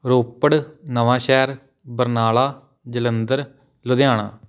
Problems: none marked